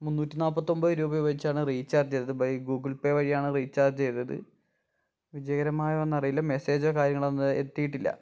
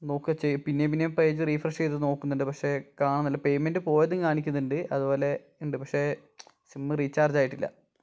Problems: none marked